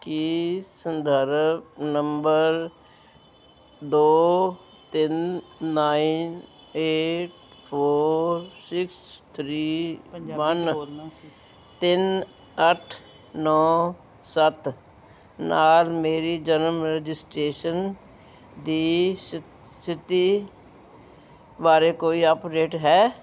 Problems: background conversations at intervals